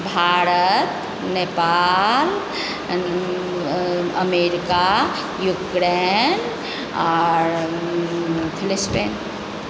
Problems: constant background noise